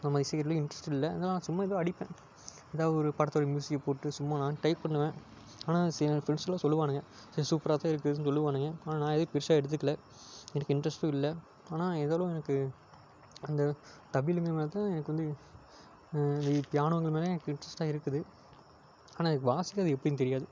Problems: none marked